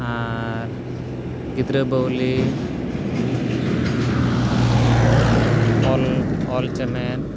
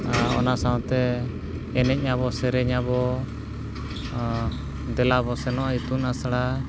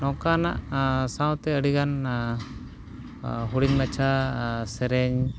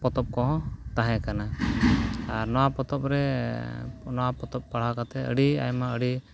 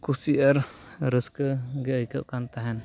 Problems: background sounds at intervals